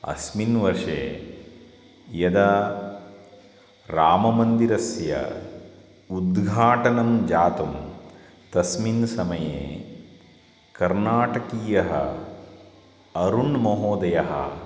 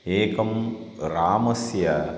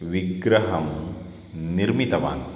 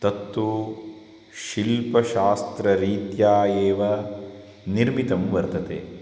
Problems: constant background noise